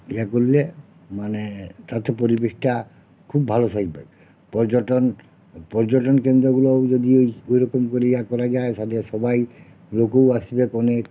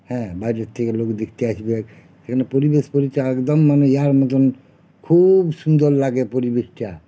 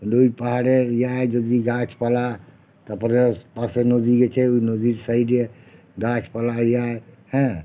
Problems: none marked